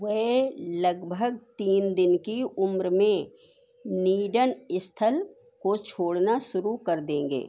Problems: none marked